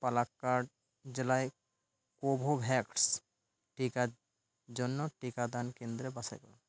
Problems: none marked